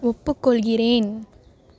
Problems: none marked